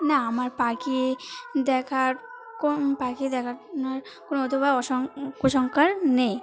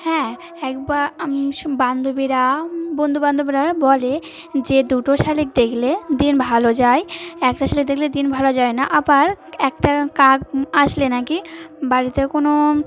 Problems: none marked